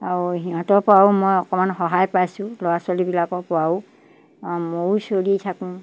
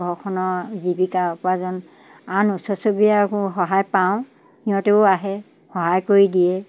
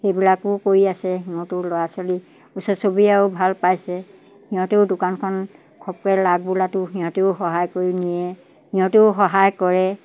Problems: none marked